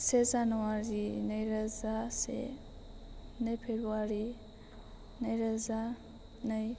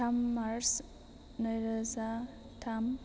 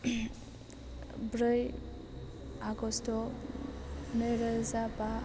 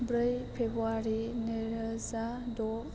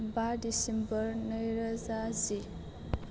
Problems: constant background noise